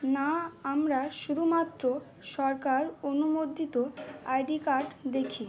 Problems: background sounds at intervals